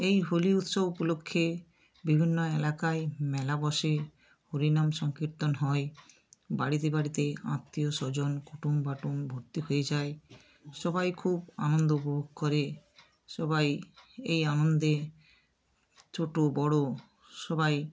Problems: none marked